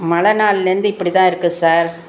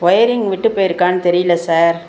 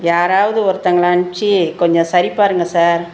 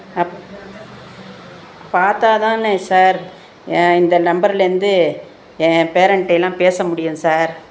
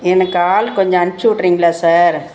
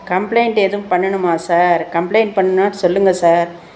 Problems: background sounds at intervals